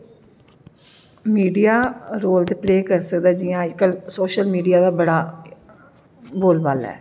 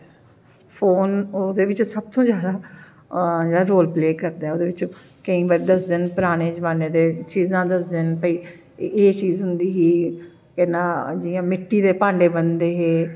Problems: none marked